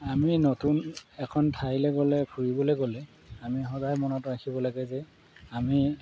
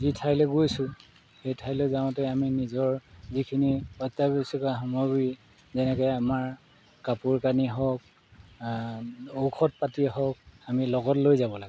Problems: background sounds at intervals